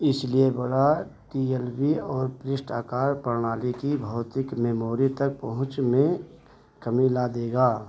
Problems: constant background noise